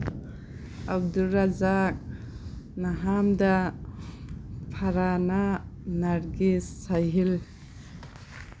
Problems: constant background noise